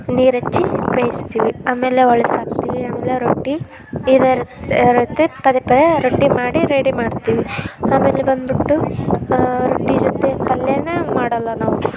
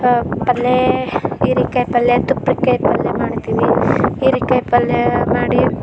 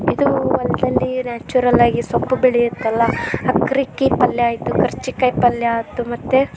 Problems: background sounds at intervals